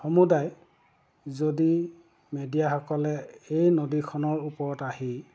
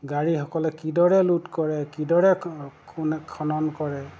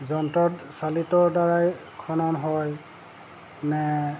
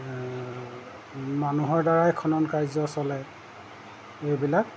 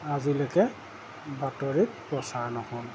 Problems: none marked